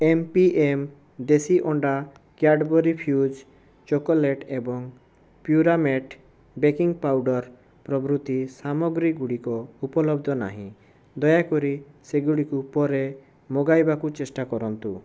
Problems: none marked